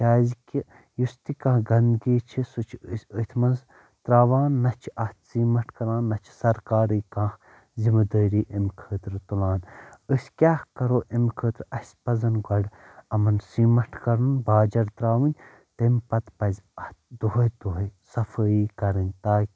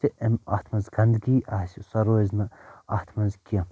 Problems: none marked